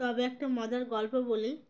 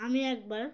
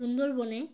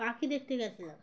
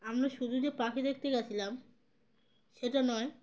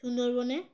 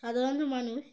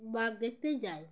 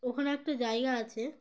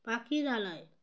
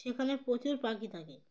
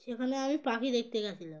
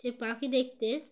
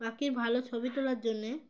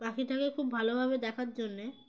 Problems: none marked